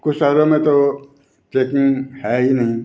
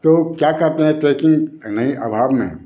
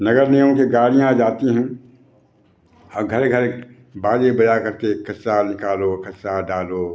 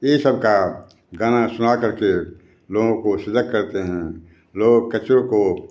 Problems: constant background noise